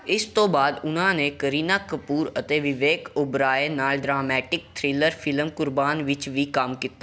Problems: background sounds at intervals